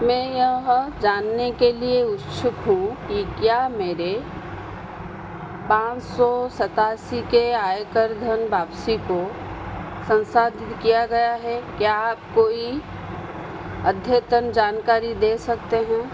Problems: constant background noise